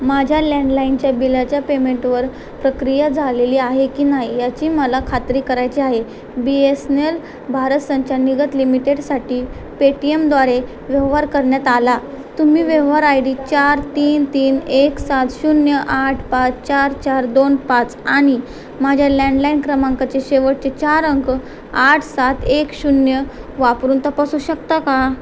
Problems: constant background noise